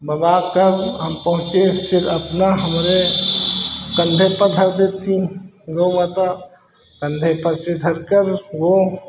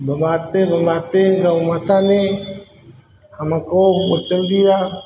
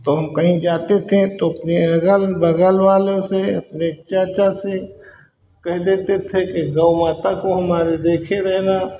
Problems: constant background noise